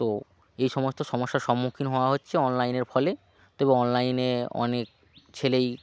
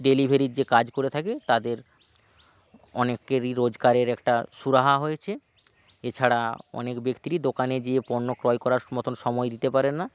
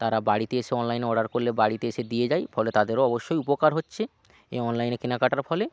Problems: background sounds at intervals